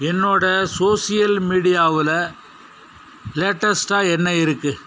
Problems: none marked